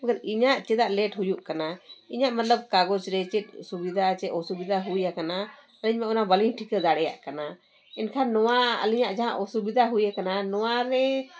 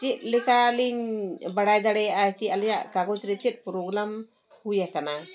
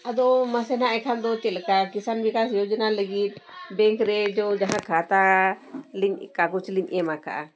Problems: background sounds at intervals